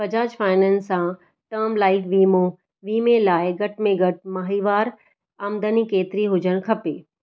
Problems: none marked